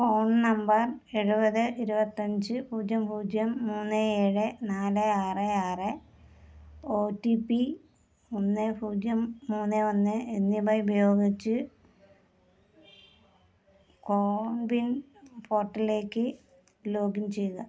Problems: low volume